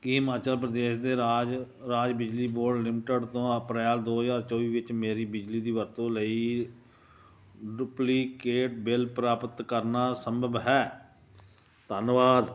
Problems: constant background noise